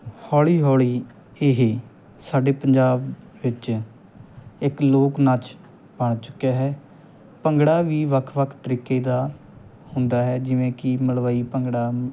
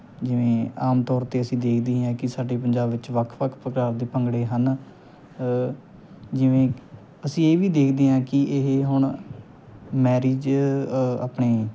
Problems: background sounds at intervals